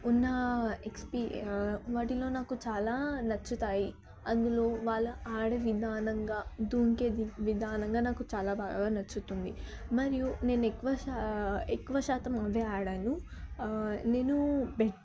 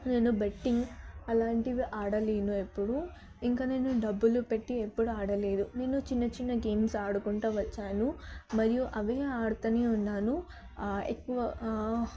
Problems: background conversations at intervals, low volume